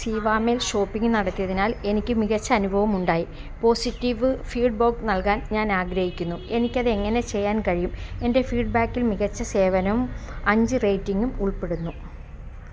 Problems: constant background noise, background conversations at intervals